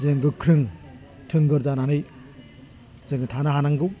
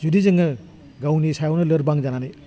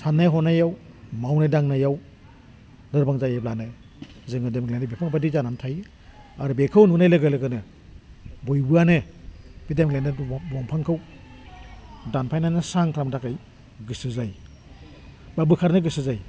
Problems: low volume